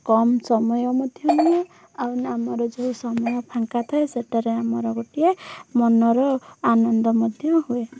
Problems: background sounds at intervals